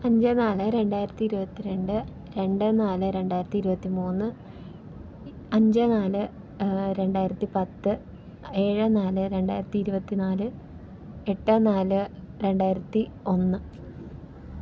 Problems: low volume